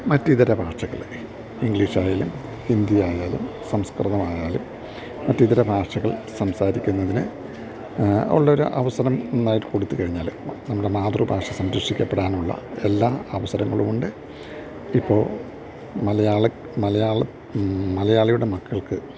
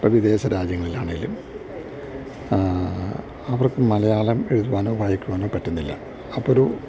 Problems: low volume